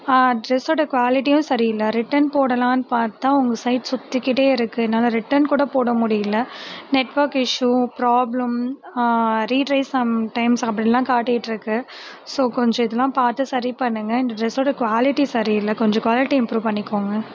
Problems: constant background noise